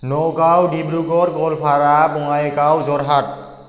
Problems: none marked